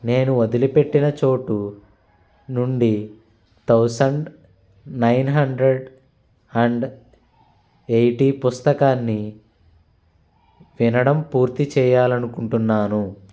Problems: constant background noise